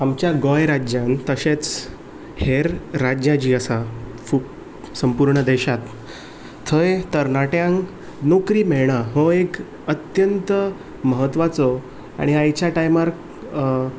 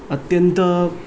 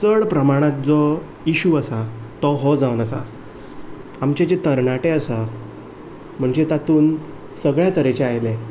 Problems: background sounds at intervals